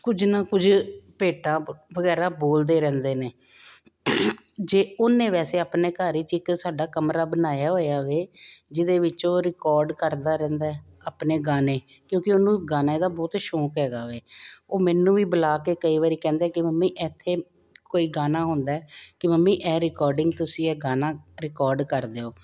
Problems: none marked